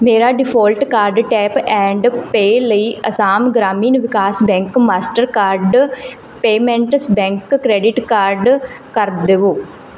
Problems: background sounds at intervals